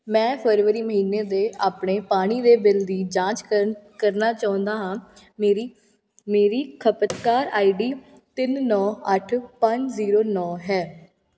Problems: constant background noise